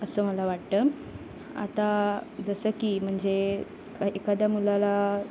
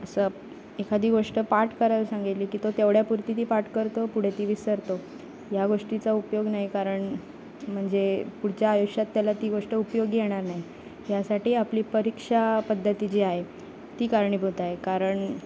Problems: constant background noise